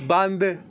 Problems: none marked